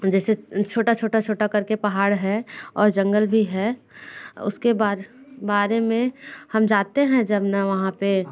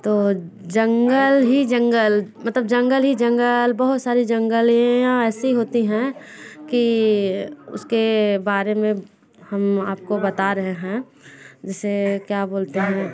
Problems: constant background noise, continuous background conversations